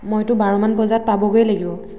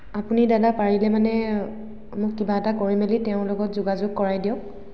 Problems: echo